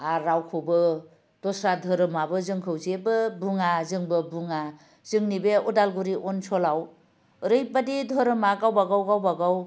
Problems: low volume